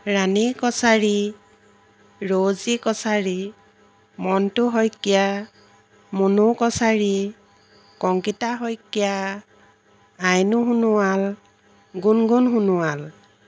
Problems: background sounds at intervals